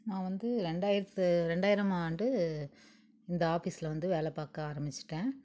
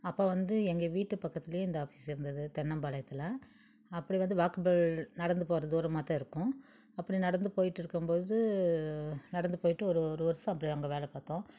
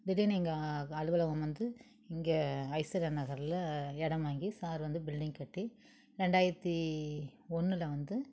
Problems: none marked